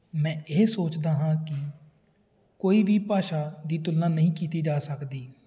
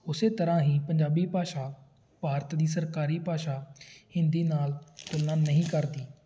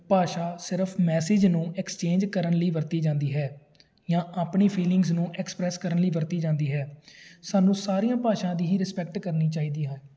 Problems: background sounds at intervals